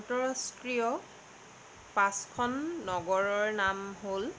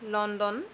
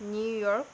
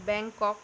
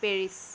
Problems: constant background noise